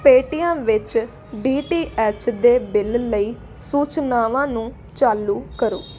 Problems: constant background noise